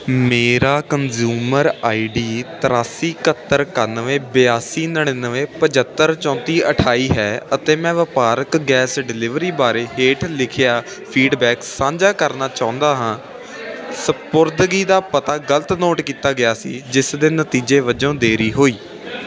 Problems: constant background noise